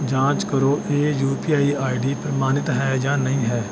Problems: none marked